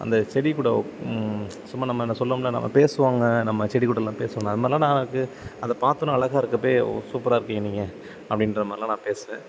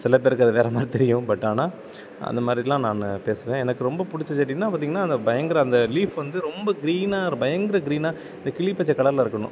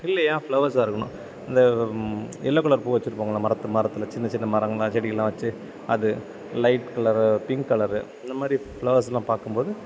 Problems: none marked